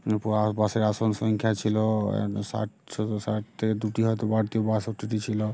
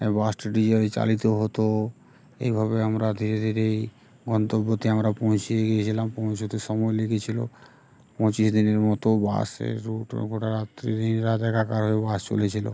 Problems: constant background noise, background conversations at intervals